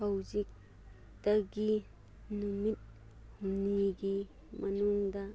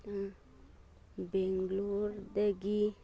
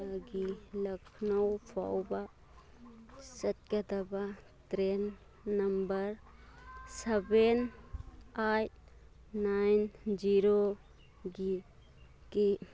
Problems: none marked